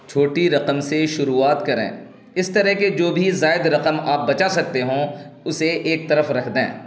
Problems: constant background noise